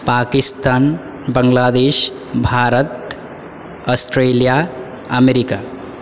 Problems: none marked